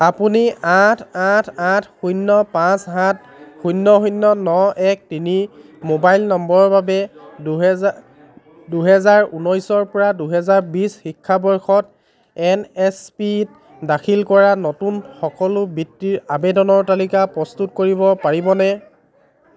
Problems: background sounds at intervals, continuous background conversations